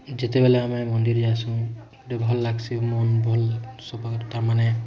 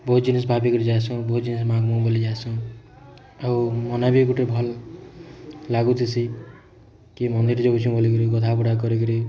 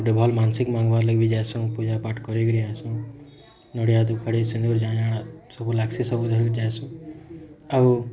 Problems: constant background noise